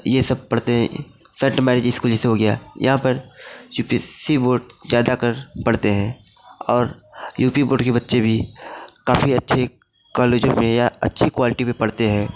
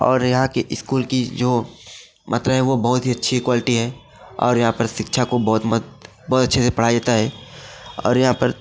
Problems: constant background noise, background conversations at intervals